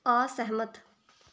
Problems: background sounds at intervals